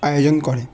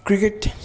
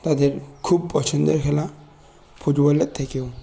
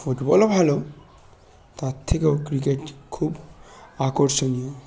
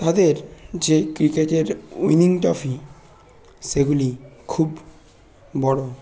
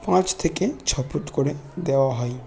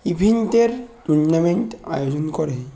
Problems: none marked